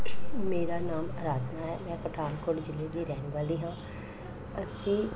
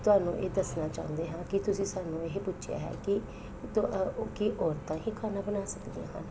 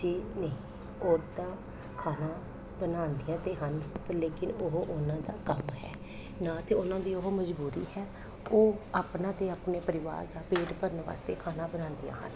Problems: constant background noise